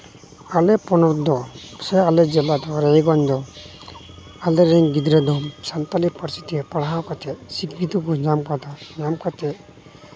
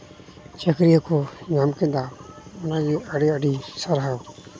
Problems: none marked